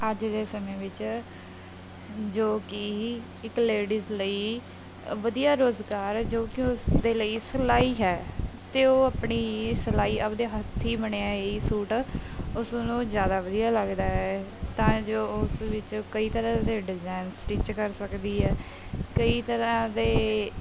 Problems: background sounds at intervals